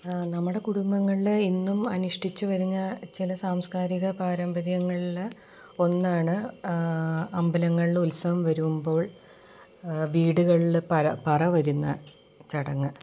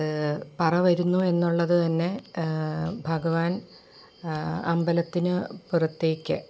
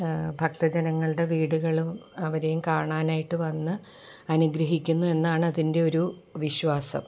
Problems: background sounds at intervals